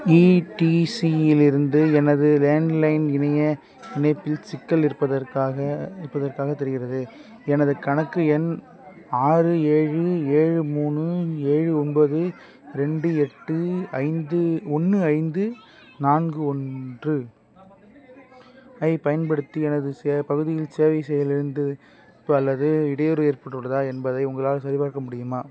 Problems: continuous background conversations